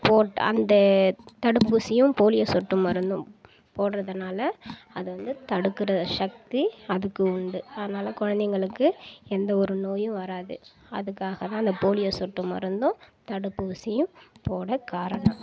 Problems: background sounds at intervals